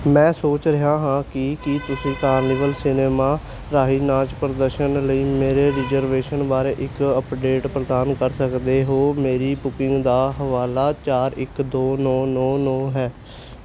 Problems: none marked